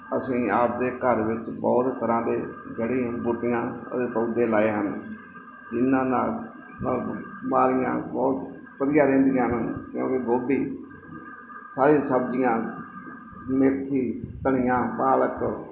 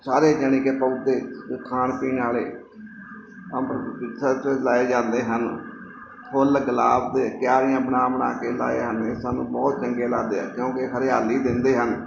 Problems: background sounds at intervals